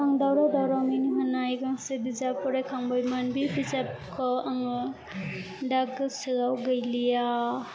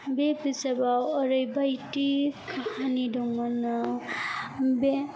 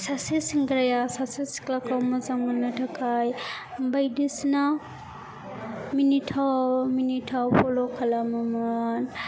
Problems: constant background noise